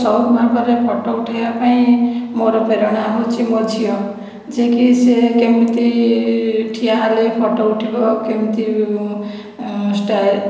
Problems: background sounds at intervals